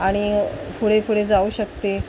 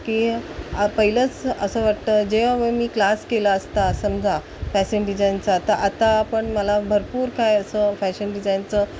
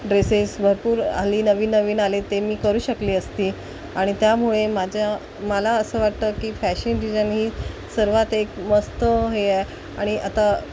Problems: constant background noise